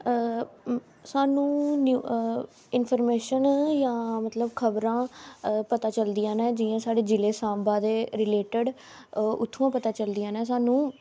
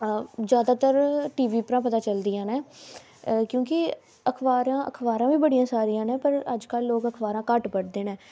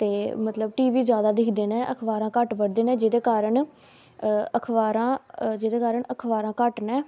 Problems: background sounds at intervals